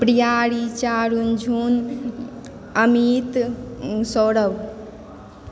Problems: background sounds at intervals, background conversations at intervals